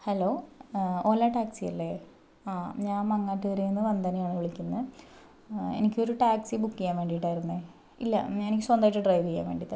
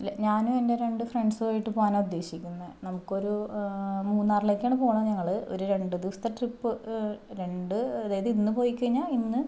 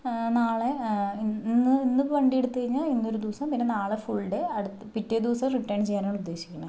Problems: none marked